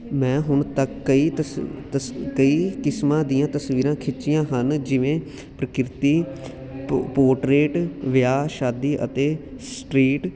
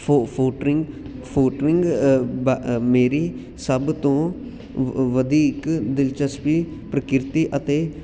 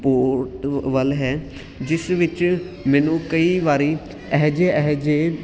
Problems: constant background noise